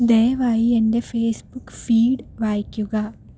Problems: low volume